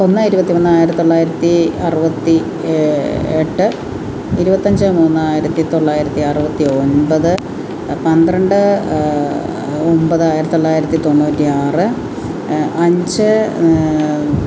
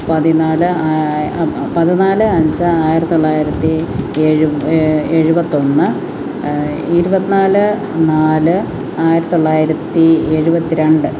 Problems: constant background noise